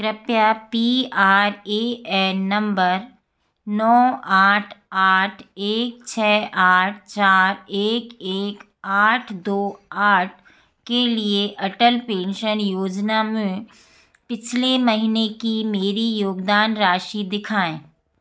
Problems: background sounds at intervals